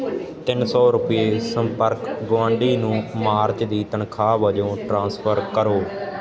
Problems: continuous background conversations